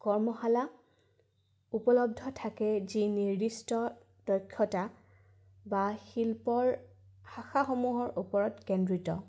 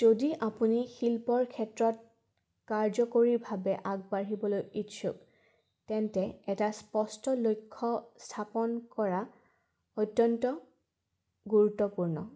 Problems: background sounds at intervals